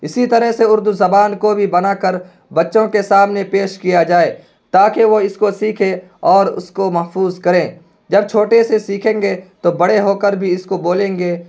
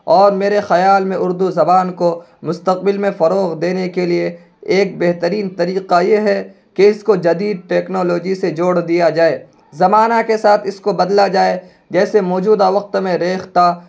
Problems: constant background noise